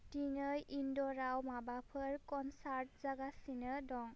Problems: constant background noise